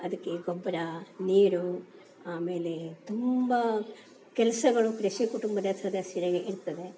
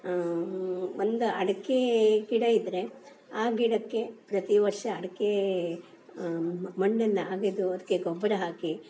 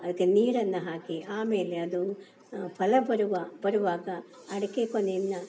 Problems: none marked